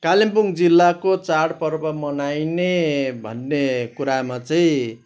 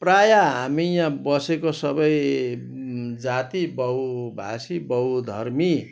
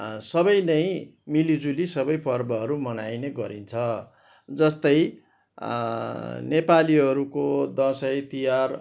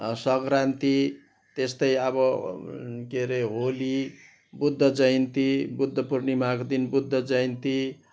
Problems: background sounds at intervals